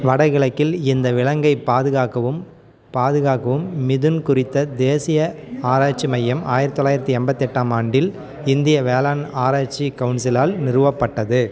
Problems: continuous background conversations